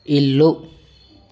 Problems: none marked